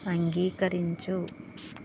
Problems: constant background noise